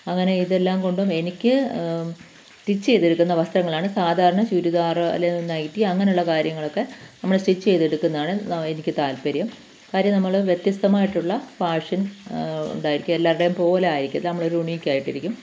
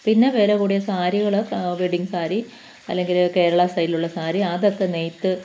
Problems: none marked